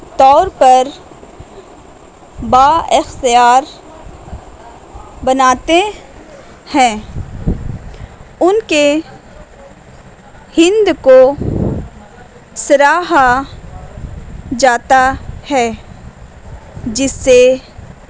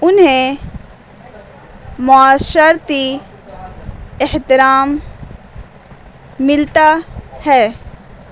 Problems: constant background noise